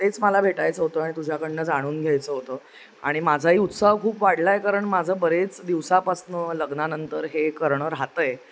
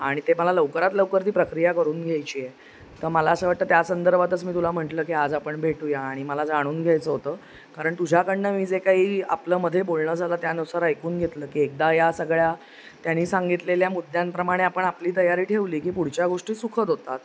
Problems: constant background noise